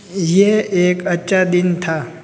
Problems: none marked